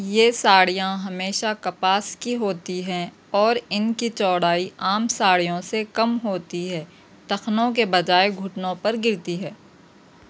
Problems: none marked